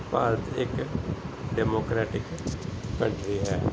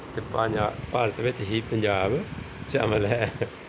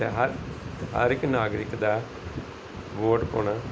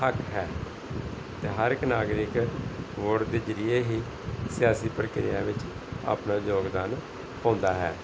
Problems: background sounds at intervals, background conversations at intervals